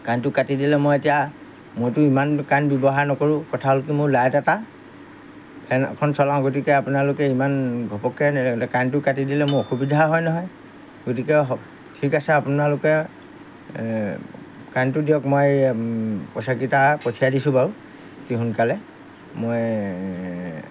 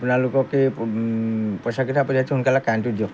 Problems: background sounds at intervals